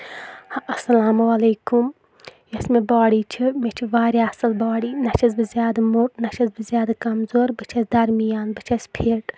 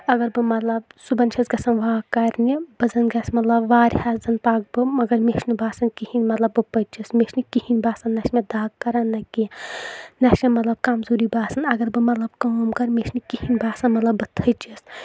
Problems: none marked